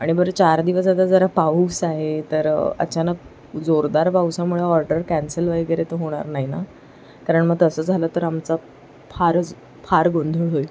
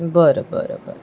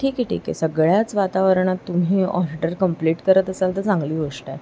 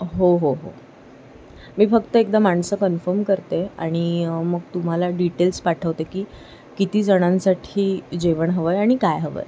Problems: none marked